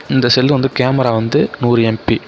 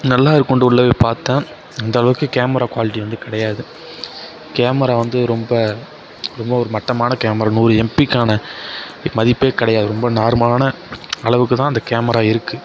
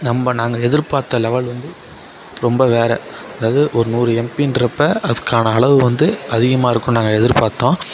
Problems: none marked